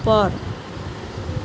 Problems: constant background noise